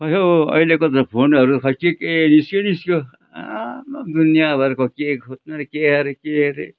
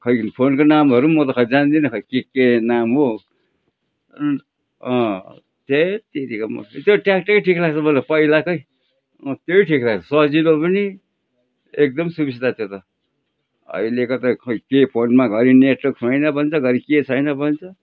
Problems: background sounds at intervals